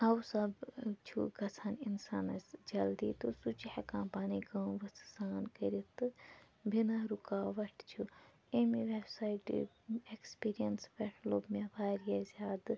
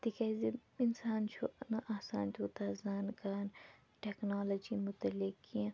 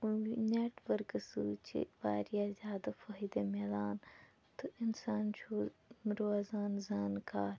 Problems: background conversations at intervals, low volume